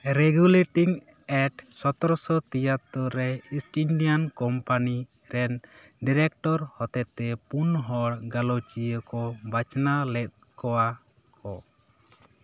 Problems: none marked